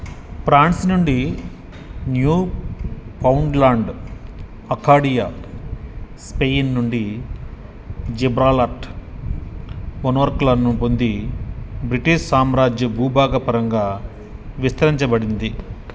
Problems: background sounds at intervals